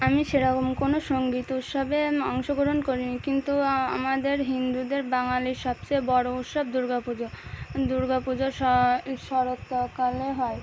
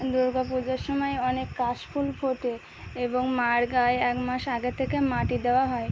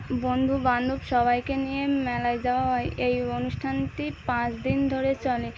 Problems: none marked